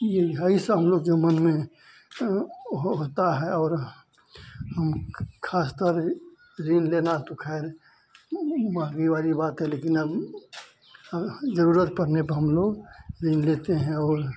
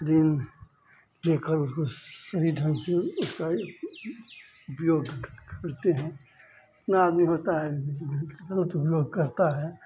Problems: constant background noise